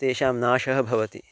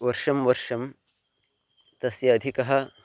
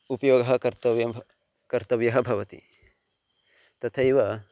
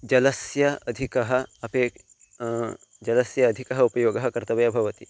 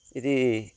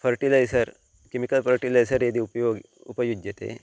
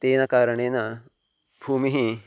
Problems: constant background noise